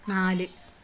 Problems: background sounds at intervals